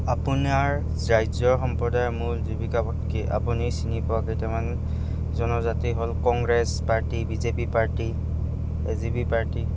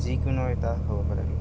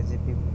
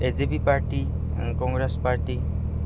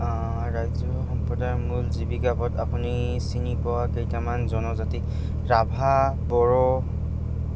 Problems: background sounds at intervals